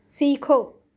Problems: constant background noise